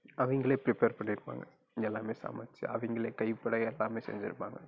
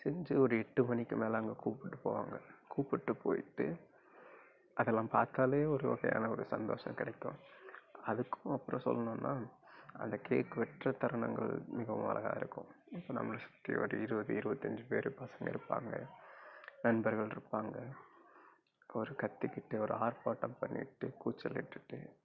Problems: low volume